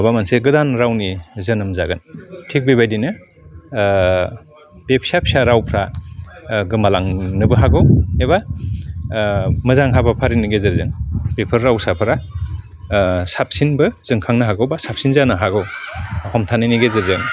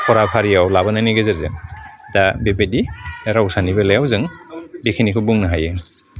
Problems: constant background noise